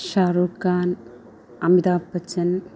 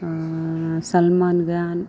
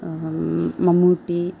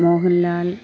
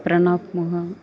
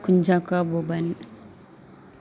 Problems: background conversations at intervals